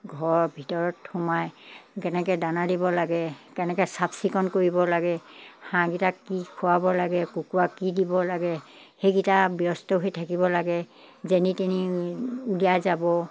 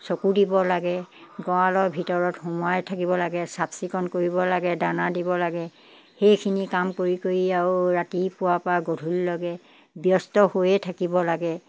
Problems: background sounds at intervals